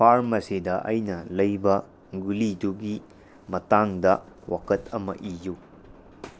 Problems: background sounds at intervals